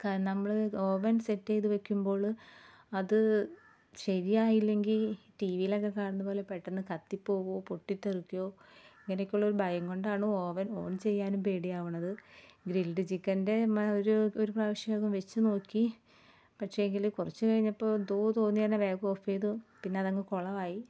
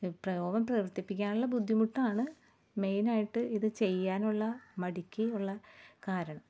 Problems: background sounds at intervals